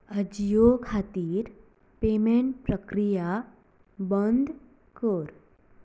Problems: low volume